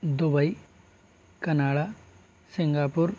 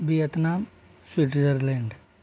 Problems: constant background noise